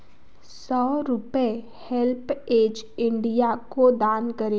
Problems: background sounds at intervals